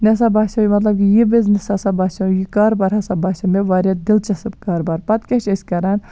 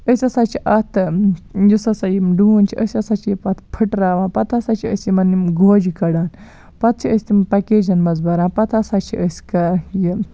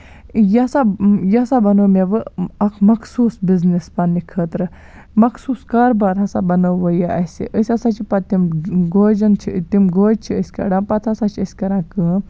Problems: none marked